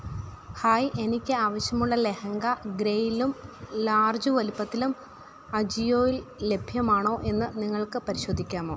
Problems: none marked